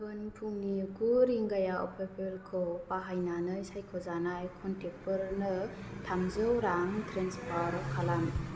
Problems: none marked